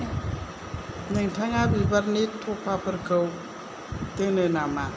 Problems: low volume